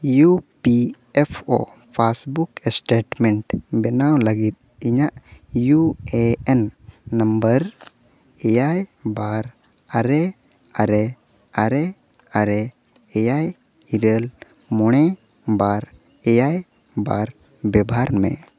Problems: background sounds at intervals, echo